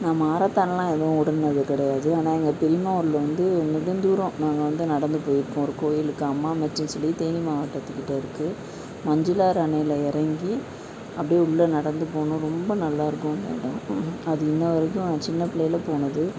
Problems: none marked